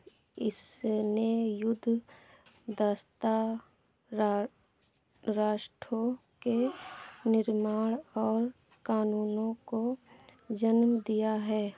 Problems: background sounds at intervals